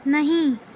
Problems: constant background noise